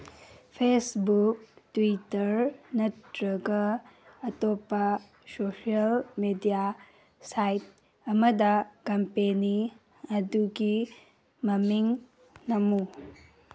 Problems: background sounds at intervals